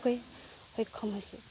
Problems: none marked